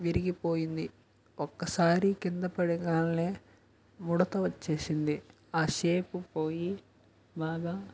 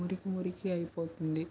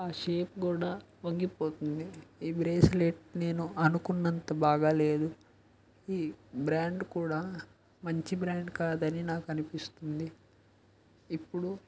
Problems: background sounds at intervals